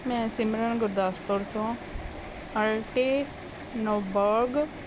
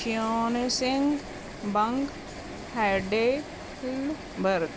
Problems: none marked